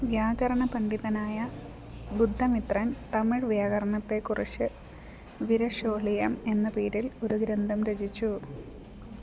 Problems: none marked